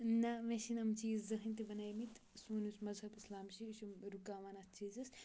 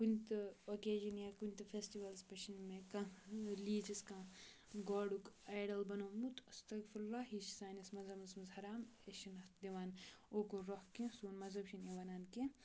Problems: background sounds at intervals, low volume